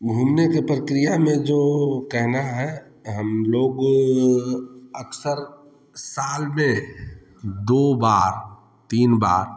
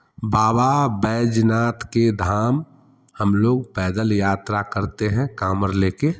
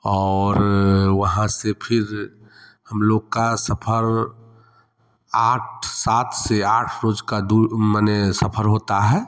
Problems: none marked